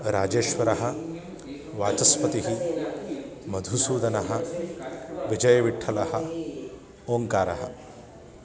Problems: constant background noise